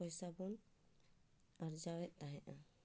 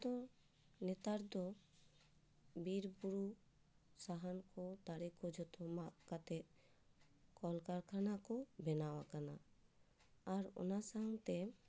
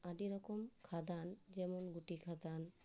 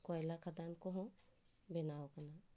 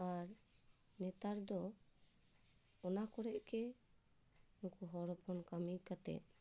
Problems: low volume